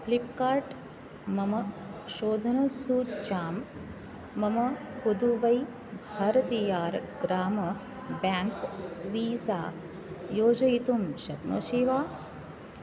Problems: background sounds at intervals